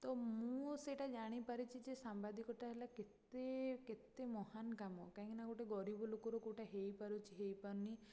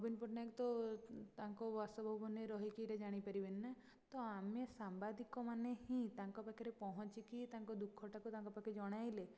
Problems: low volume